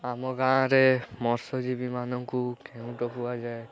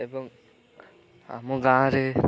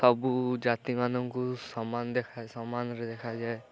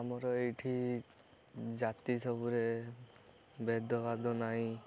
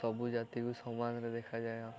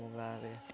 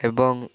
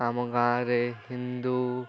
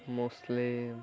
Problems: continuous background conversations